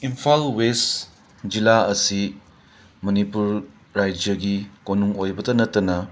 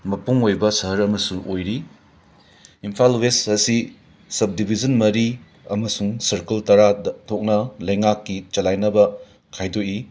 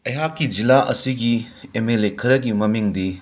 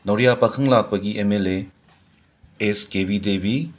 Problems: background sounds at intervals